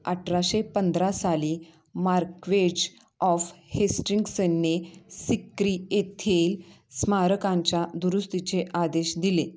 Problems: none marked